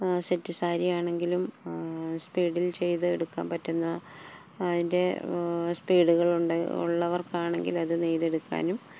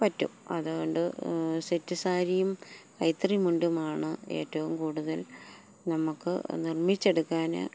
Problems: none marked